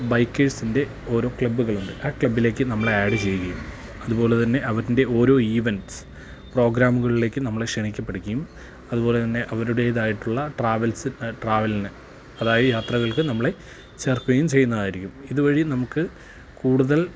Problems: constant background noise, low volume